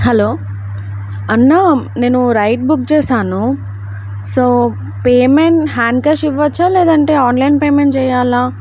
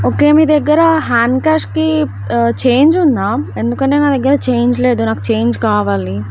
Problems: none marked